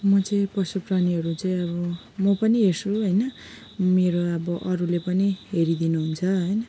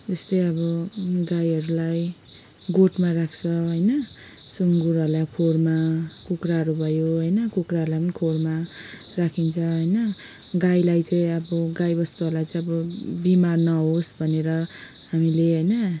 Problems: background sounds at intervals, background conversations at intervals